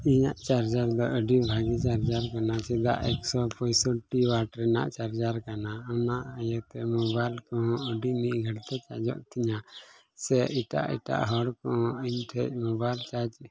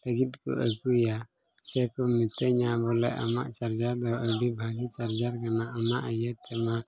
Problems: constant background noise, low volume